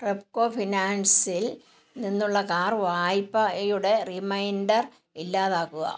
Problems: none marked